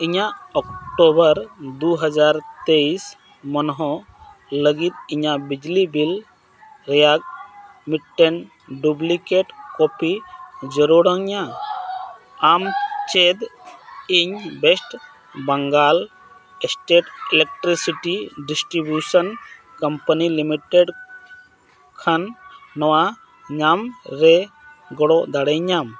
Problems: constant background noise, background conversations at intervals